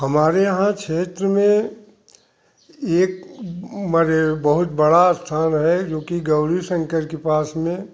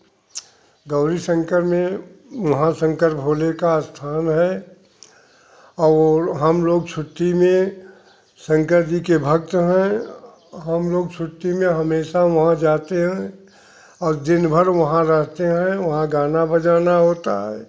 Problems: background sounds at intervals